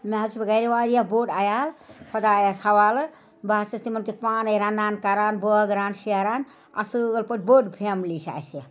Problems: none marked